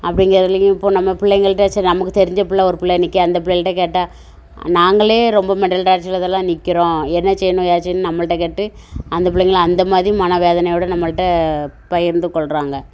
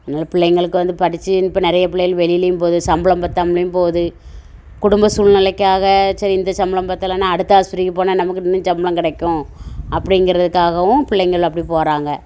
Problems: constant background noise